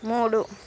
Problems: constant background noise